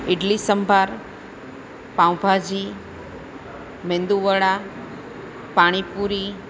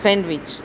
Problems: constant background noise